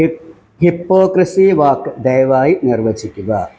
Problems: background sounds at intervals